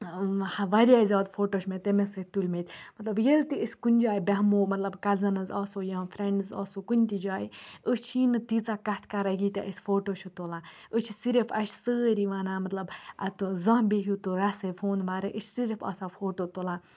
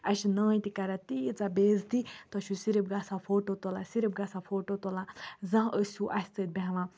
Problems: none marked